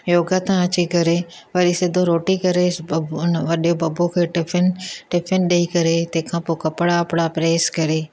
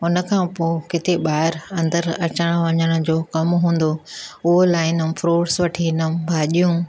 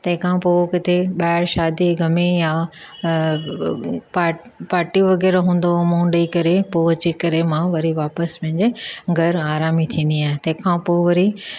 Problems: none marked